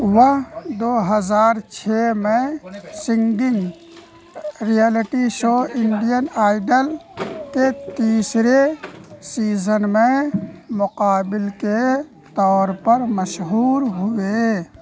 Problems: constant background noise